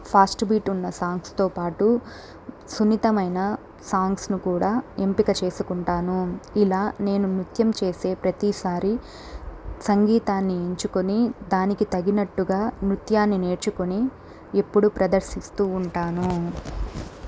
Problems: background sounds at intervals